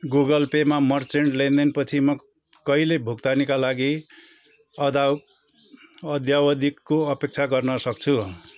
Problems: background sounds at intervals